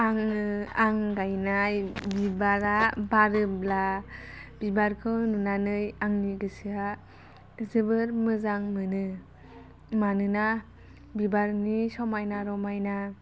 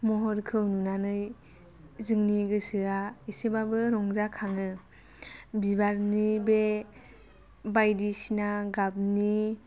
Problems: none marked